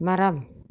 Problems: none marked